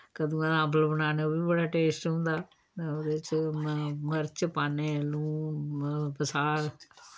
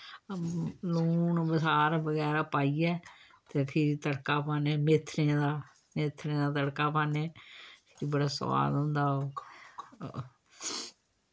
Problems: none marked